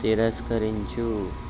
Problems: constant background noise